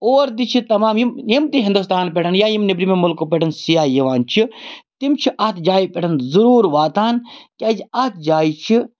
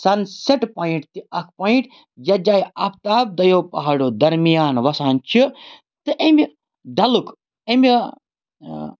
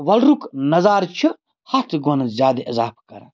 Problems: background sounds at intervals